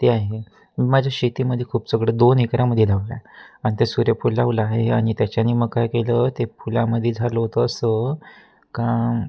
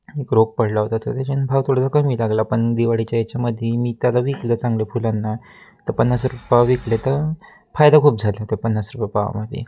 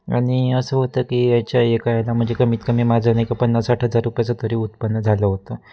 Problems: constant background noise